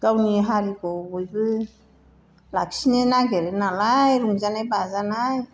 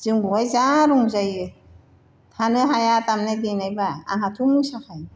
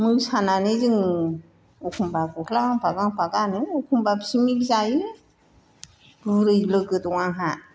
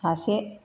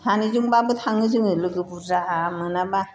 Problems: constant background noise